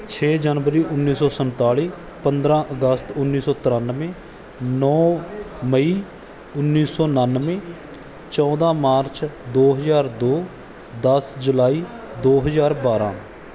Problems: background conversations at intervals